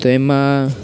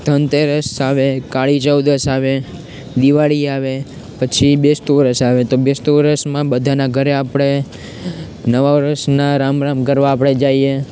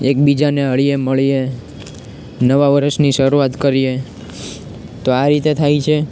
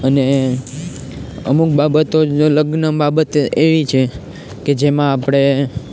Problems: constant background noise